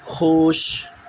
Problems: constant background noise